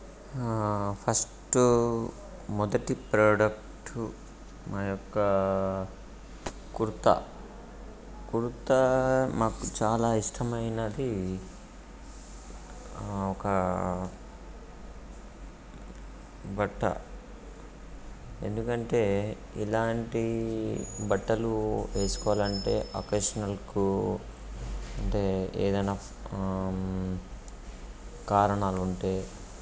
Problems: background sounds at intervals